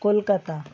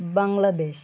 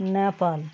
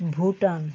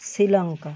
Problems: constant background noise